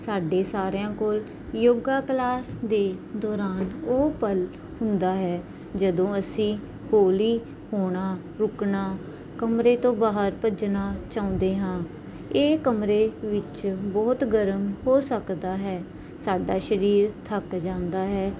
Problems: none marked